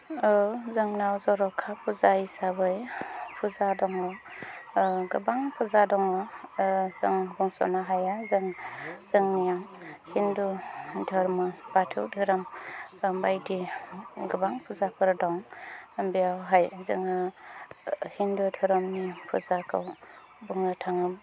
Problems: low volume